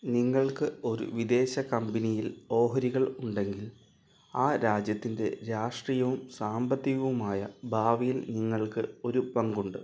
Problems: low volume